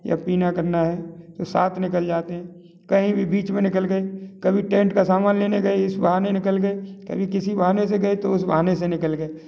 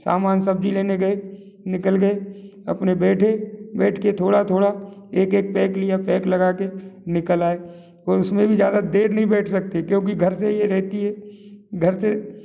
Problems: none marked